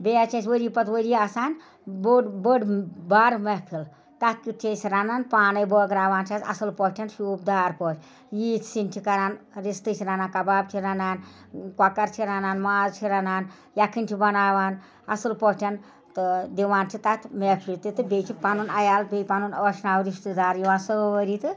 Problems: none marked